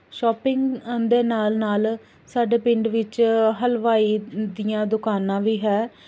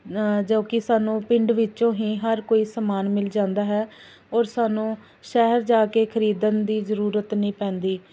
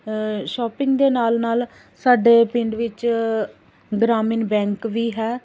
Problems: none marked